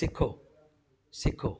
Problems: constant background noise